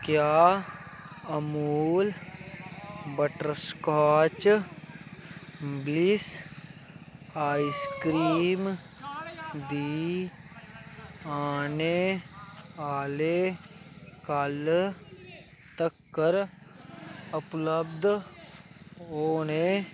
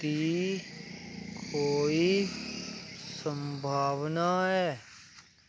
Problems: constant background noise